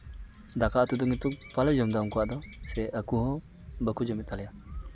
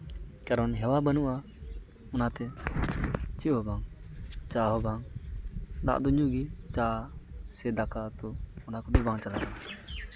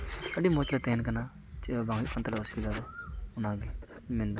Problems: background sounds at intervals